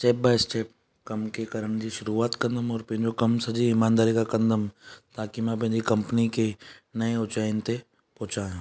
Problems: none marked